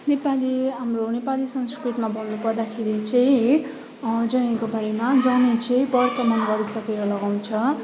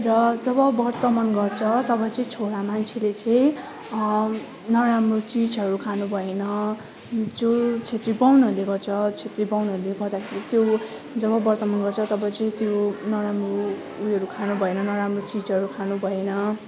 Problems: continuous background conversations